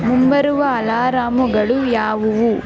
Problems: constant background noise